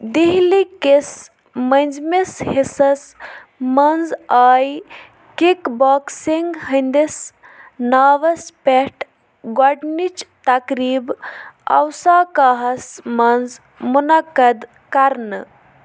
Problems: none marked